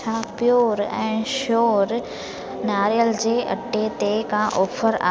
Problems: constant background noise